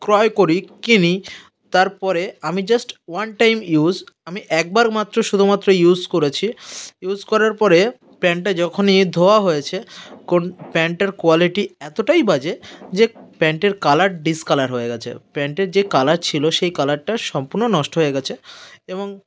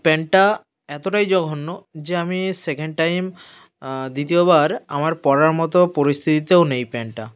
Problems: background sounds at intervals